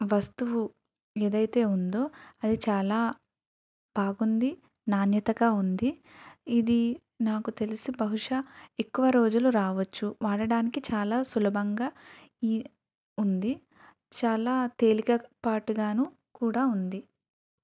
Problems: none marked